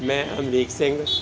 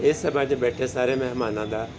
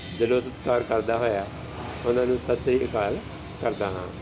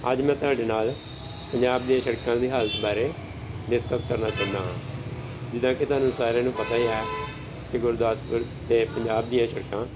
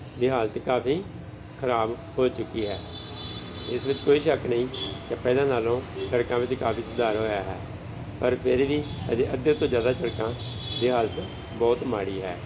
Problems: constant background noise, background conversations at intervals